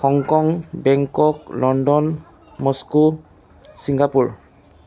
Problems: constant background noise